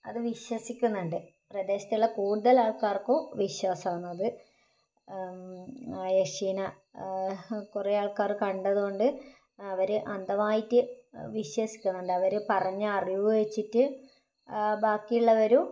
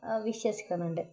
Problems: low volume